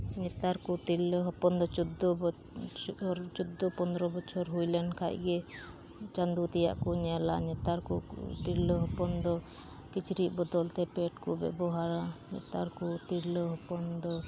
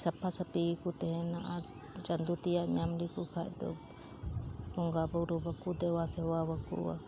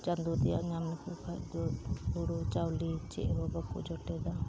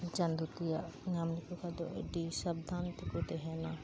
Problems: constant background noise